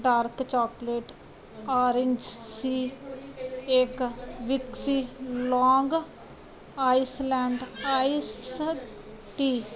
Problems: background sounds at intervals